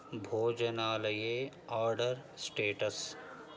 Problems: none marked